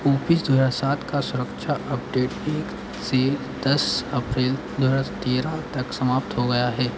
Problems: constant background noise